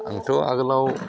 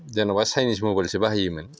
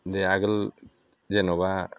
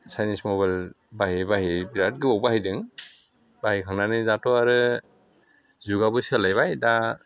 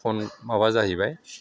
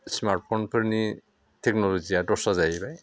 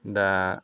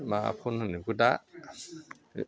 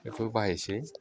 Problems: constant background noise